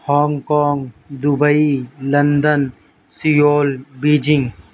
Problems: constant background noise, low volume